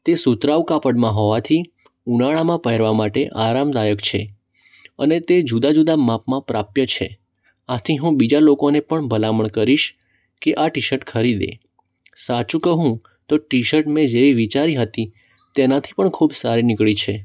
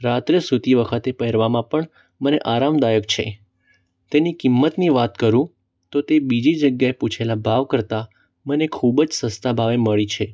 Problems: none marked